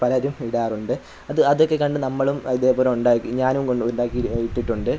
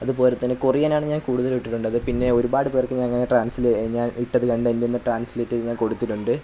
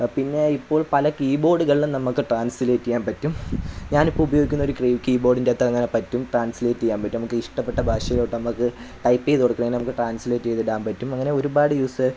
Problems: constant background noise